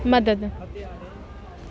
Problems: constant background noise